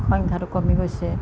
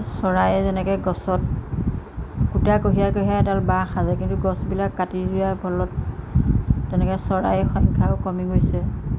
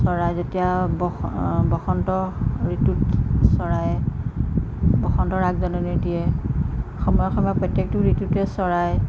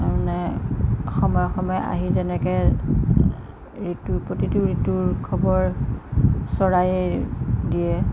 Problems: constant background noise